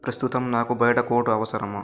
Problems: constant background noise